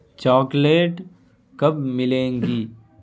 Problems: constant background noise